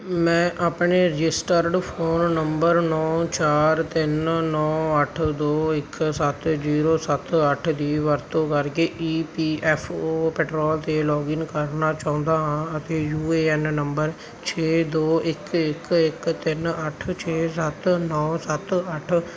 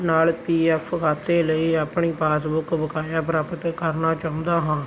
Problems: none marked